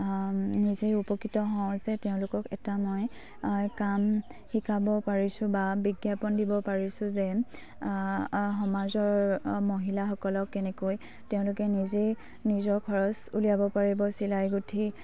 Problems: low volume